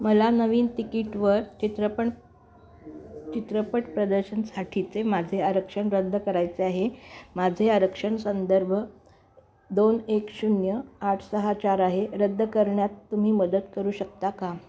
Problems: constant background noise, continuous background conversations